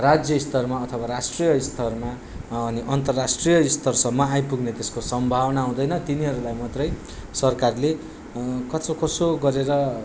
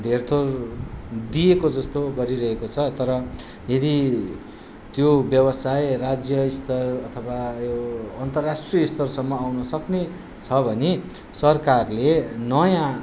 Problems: background sounds at intervals